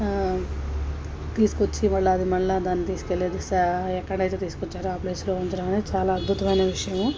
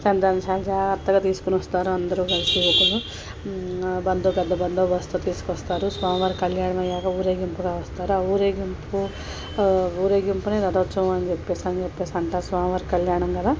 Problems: constant background noise, background conversations at intervals